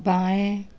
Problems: constant background noise